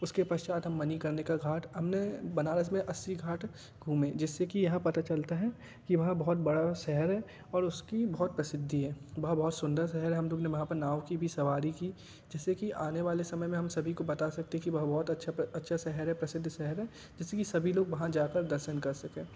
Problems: background sounds at intervals